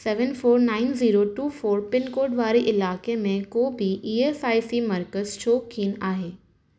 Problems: none marked